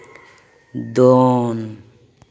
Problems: echo